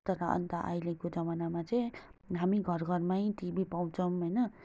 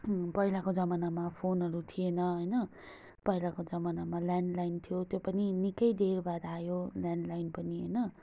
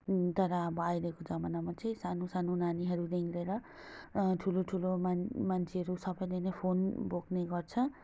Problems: constant background noise